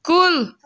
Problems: none marked